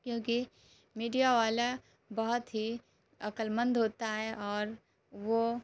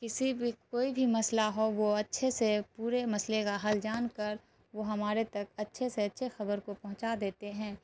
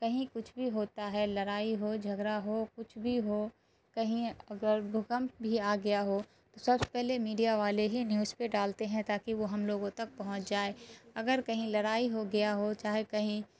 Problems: constant background noise